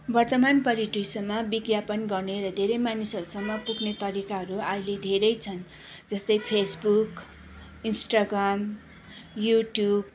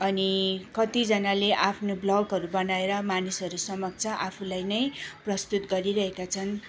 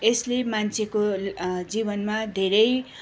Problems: none marked